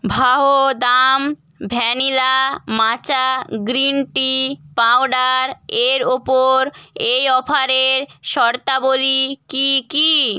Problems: none marked